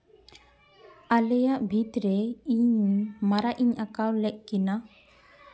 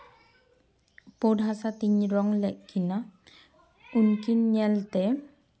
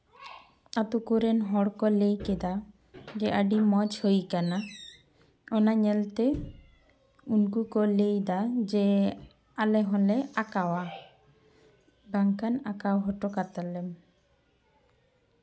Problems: none marked